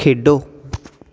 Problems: constant background noise